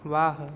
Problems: none marked